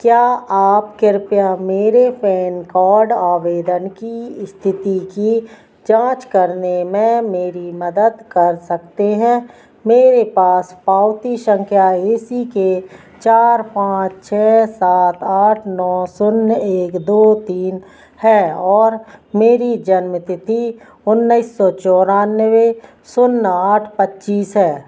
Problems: none marked